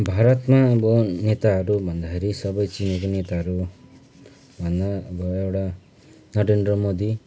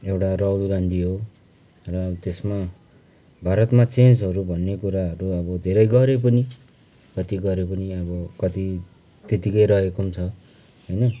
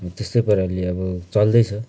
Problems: constant background noise